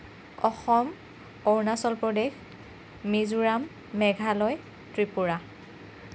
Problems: constant background noise